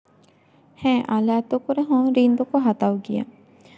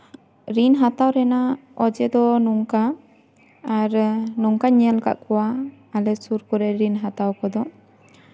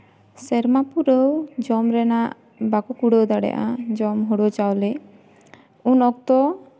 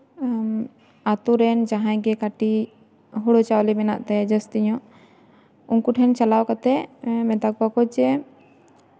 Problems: background sounds at intervals, background conversations at intervals